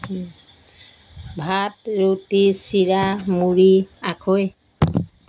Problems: background sounds at intervals